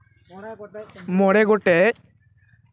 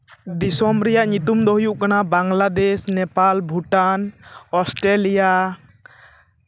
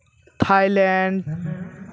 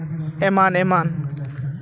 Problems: background conversations at intervals